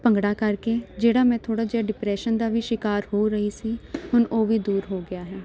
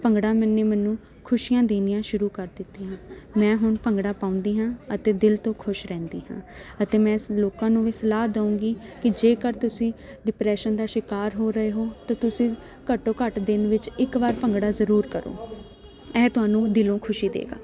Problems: none marked